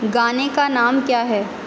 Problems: constant background noise, echo